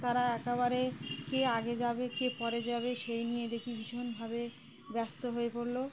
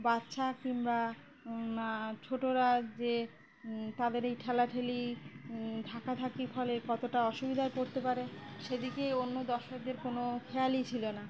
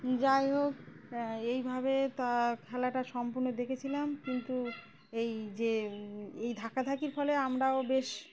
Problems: constant background noise, background conversations at intervals